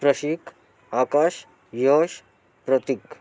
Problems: continuous background conversations